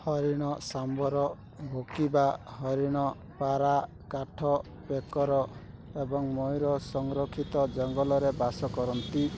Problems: constant background noise